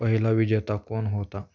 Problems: none marked